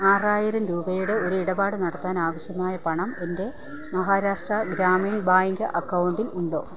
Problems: constant background noise, low volume